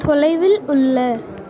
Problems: constant background noise